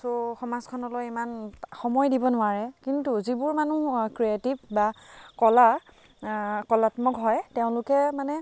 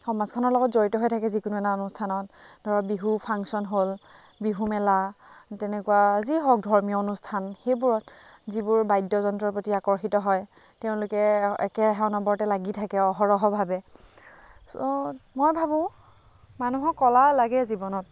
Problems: constant background noise, background conversations at intervals